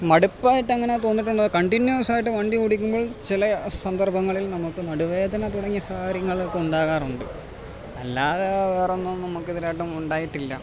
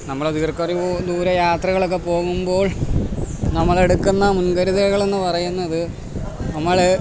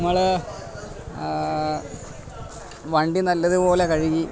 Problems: background sounds at intervals